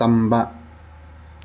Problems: none marked